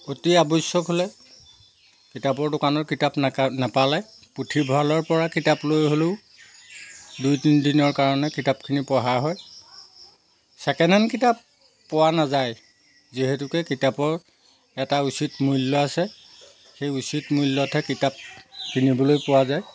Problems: background sounds at intervals